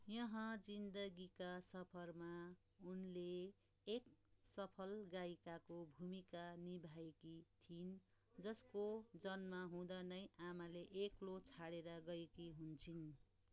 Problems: background conversations at intervals